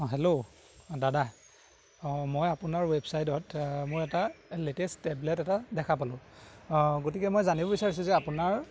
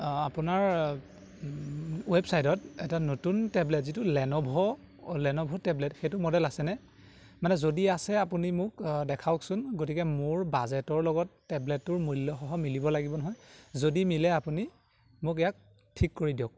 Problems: none marked